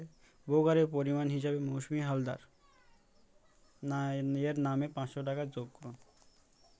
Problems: none marked